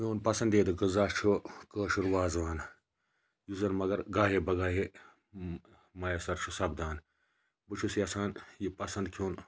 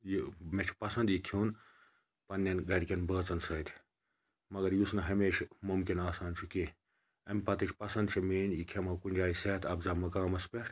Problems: background sounds at intervals